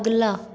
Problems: constant background noise, echo